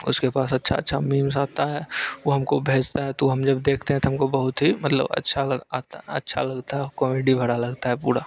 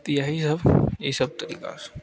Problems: constant background noise